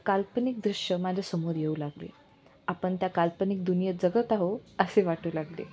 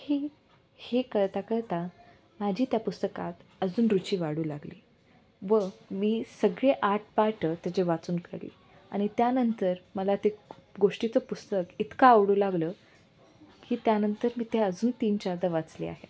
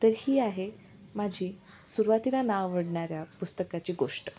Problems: none marked